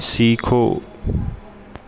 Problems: constant background noise